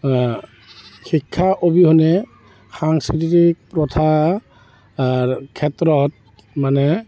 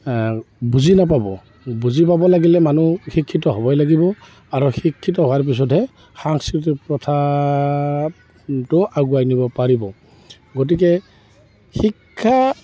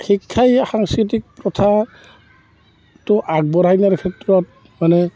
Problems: constant background noise